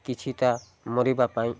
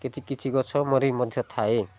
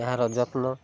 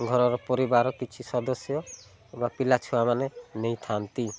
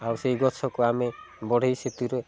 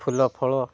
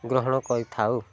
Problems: low volume